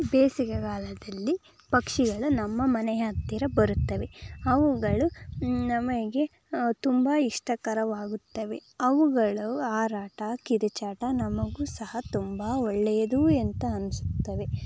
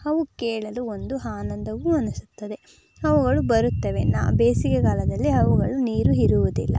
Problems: background sounds at intervals